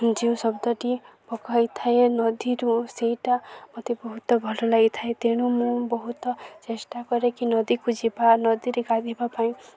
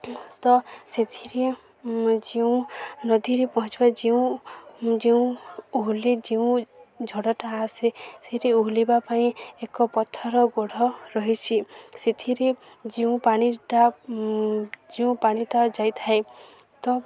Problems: constant background noise, continuous background conversations